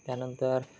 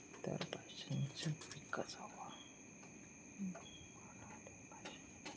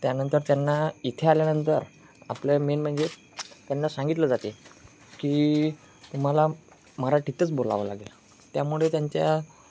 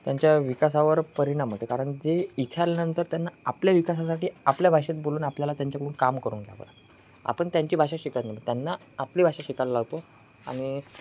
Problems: constant background noise